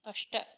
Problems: none marked